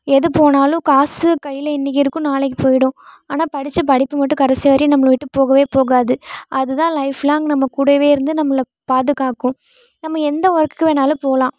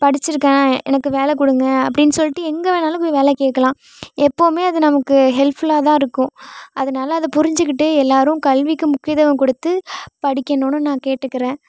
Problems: none marked